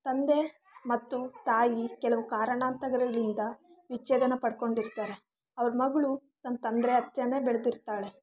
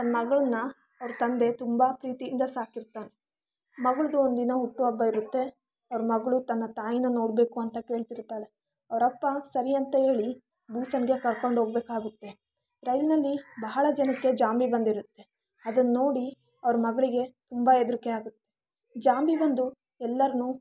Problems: background sounds at intervals